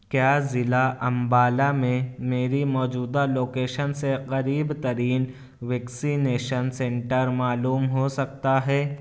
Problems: none marked